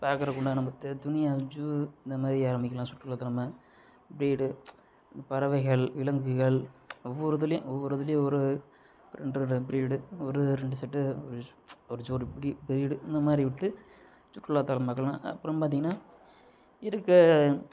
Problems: none marked